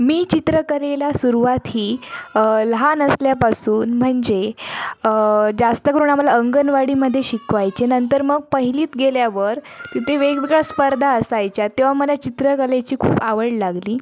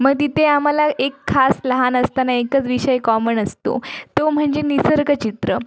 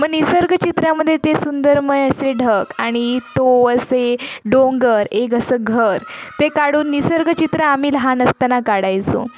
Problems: constant background noise, continuous background conversations